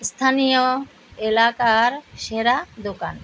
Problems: constant background noise